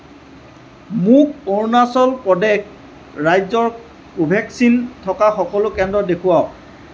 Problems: constant background noise